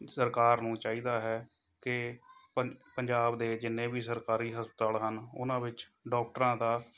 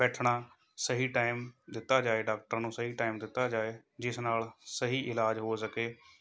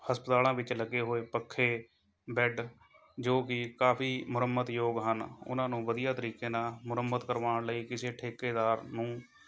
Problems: background sounds at intervals, background conversations at intervals